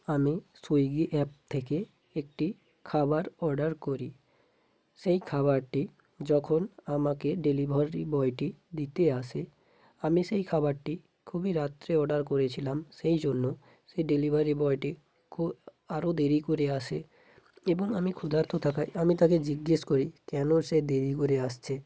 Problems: background sounds at intervals